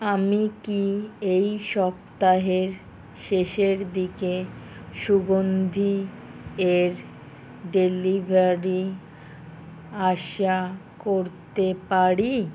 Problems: none marked